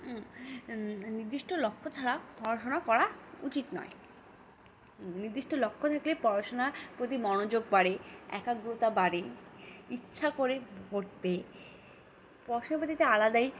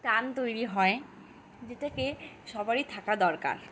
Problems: constant background noise